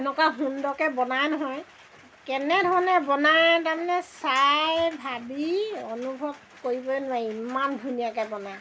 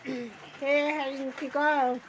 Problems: constant background noise